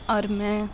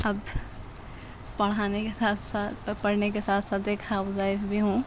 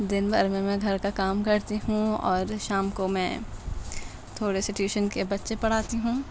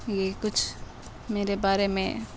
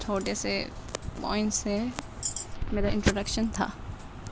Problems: constant background noise, low volume